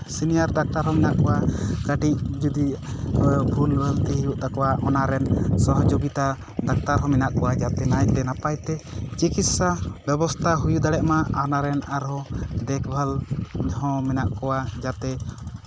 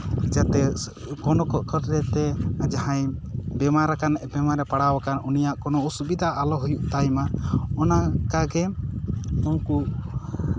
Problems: constant background noise